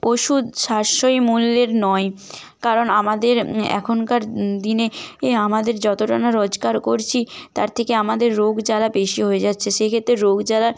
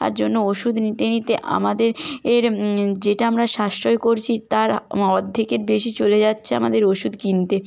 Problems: background sounds at intervals